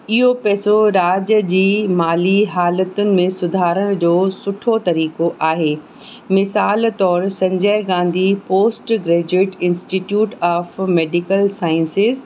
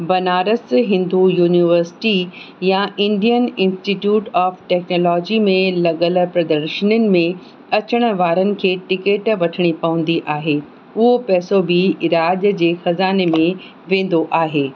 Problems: constant background noise